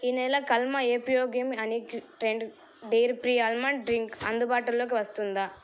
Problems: background sounds at intervals